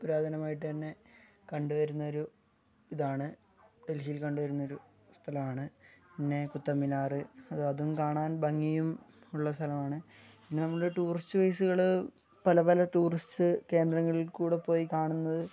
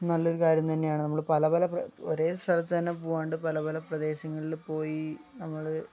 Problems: low volume